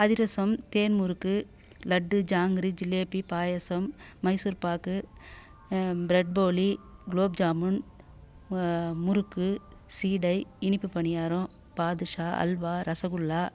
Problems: none marked